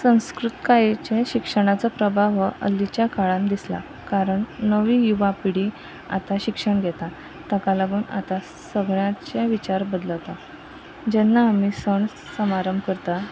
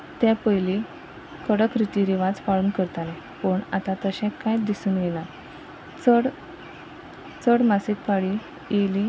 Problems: constant background noise